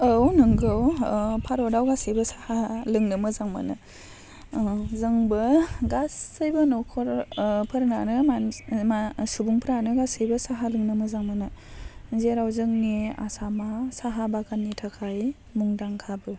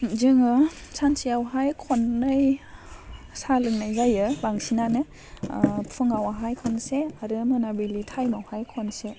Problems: none marked